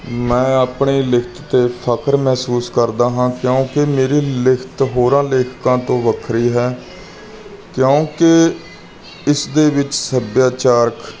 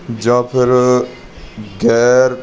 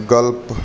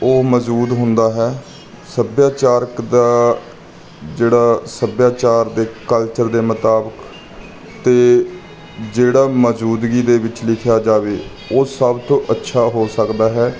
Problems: background sounds at intervals